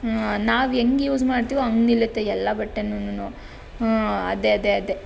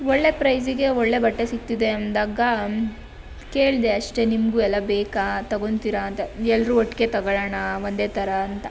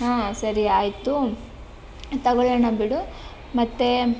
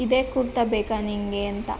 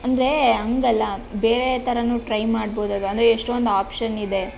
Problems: none marked